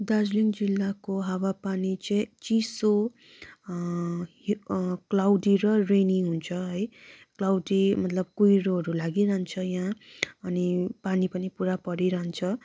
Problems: background sounds at intervals